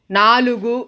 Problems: constant background noise